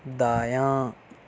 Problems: none marked